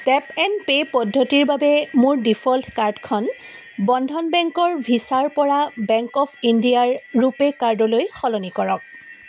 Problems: constant background noise